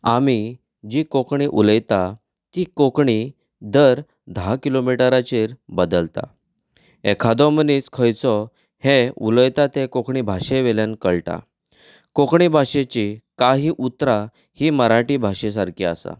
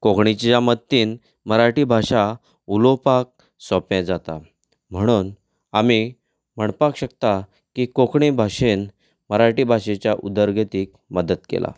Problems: background conversations at intervals